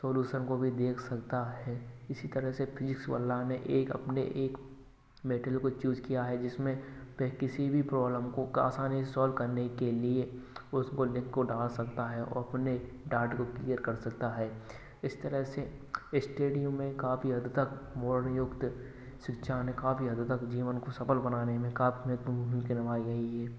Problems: none marked